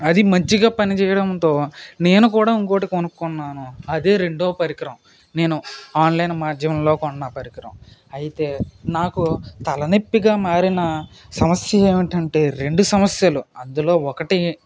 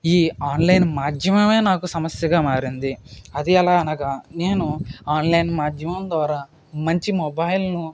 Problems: constant background noise